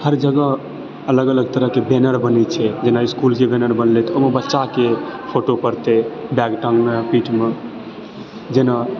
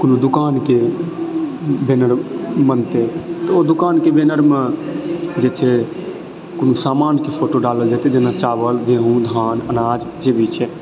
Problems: constant background noise, background conversations at intervals